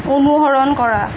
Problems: constant background noise